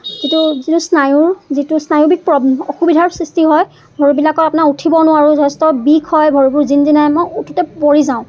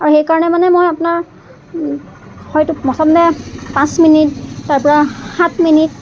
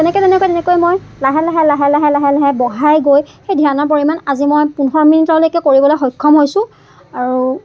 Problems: constant background noise, background conversations at intervals